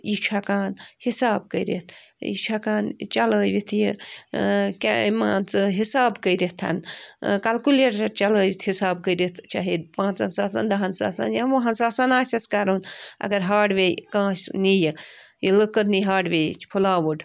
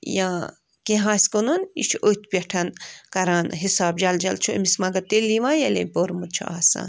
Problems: constant background noise